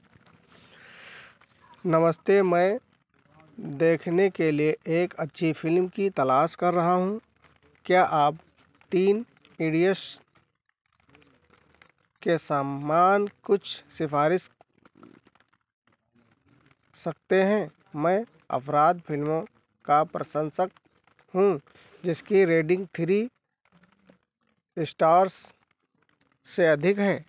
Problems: none marked